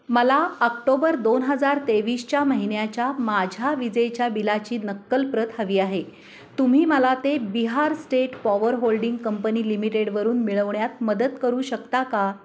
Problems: constant background noise, background conversations at intervals